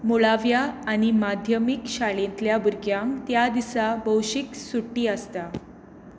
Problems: none marked